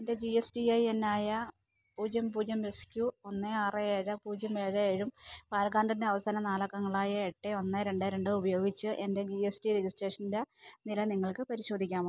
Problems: background sounds at intervals